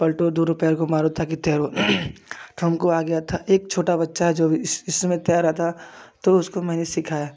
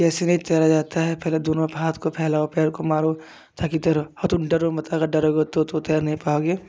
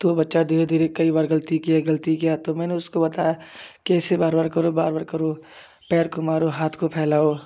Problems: none marked